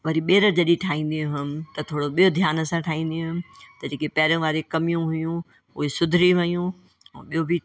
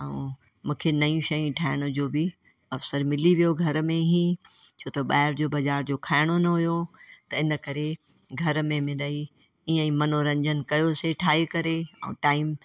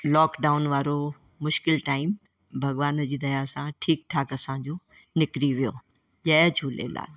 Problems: constant background noise